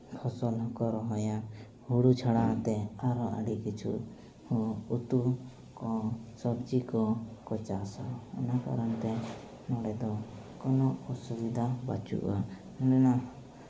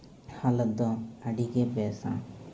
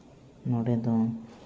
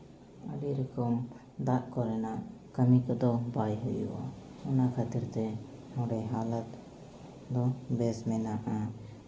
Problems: none marked